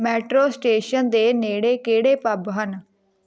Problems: background conversations at intervals